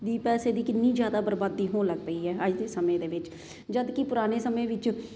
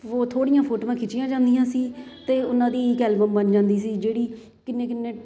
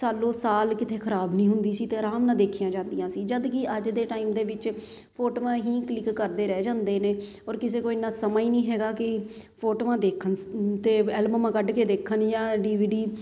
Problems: none marked